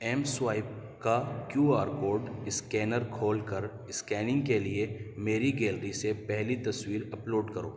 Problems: none marked